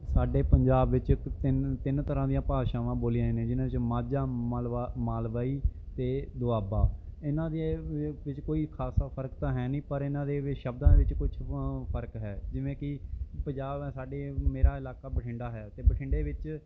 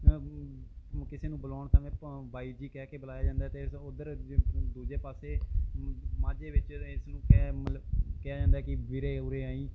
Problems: background sounds at intervals